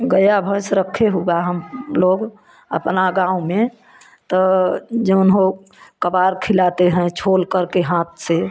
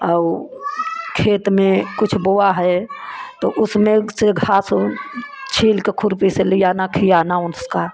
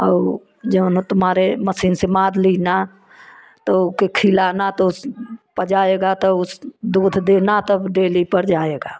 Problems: constant background noise, continuous background conversations